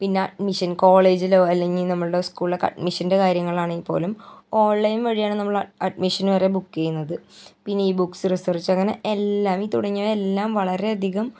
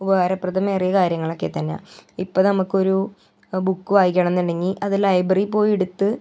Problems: none marked